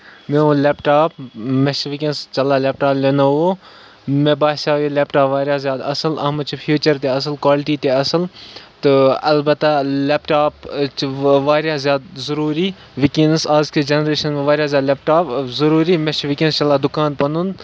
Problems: none marked